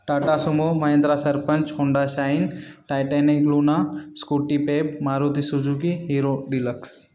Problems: none marked